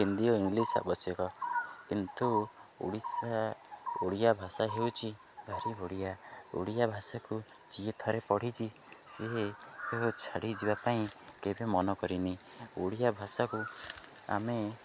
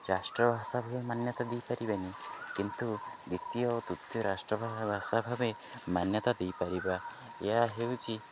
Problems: none marked